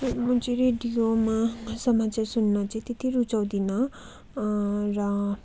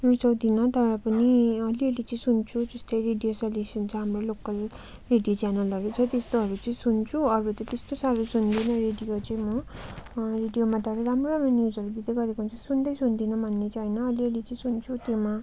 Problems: constant background noise